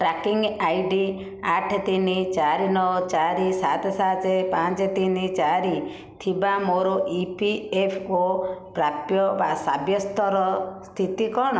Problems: none marked